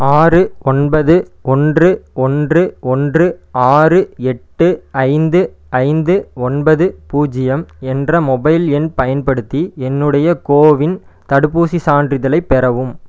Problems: none marked